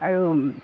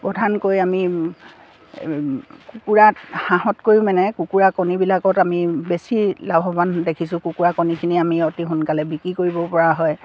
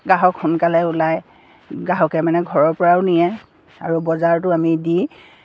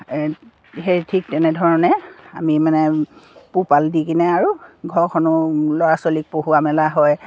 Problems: none marked